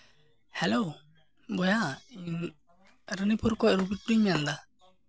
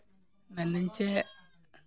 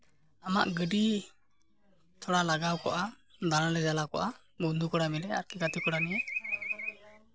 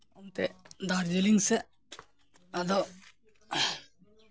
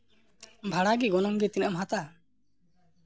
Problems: constant background noise